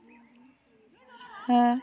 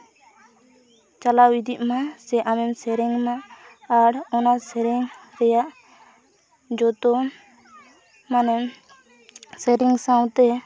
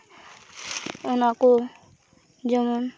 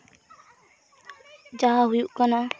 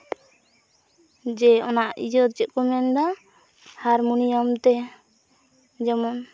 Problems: constant background noise, continuous background conversations